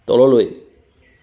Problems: constant background noise